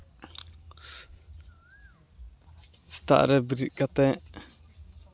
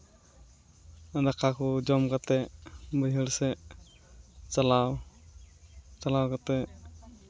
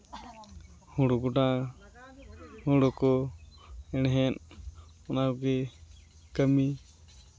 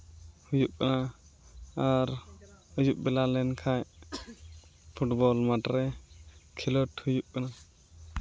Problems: background sounds at intervals